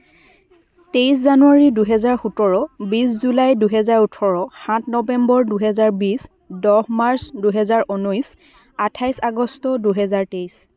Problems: background conversations at intervals